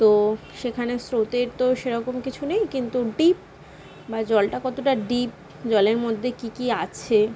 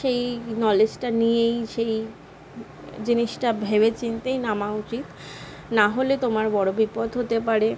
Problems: none marked